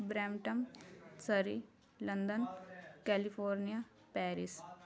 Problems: continuous background conversations